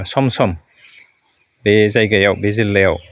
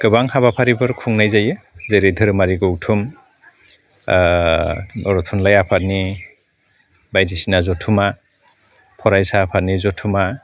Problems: none marked